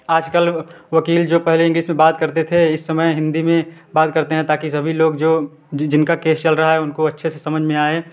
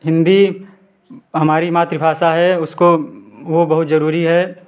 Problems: background sounds at intervals